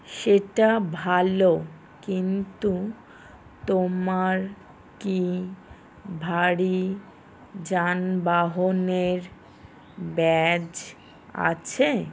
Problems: background sounds at intervals